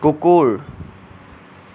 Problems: none marked